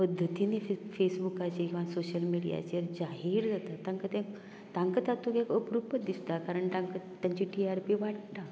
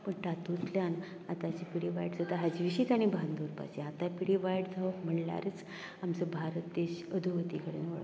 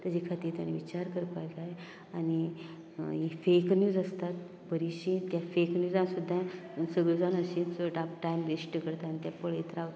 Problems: low volume